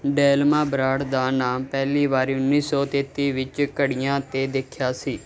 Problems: none marked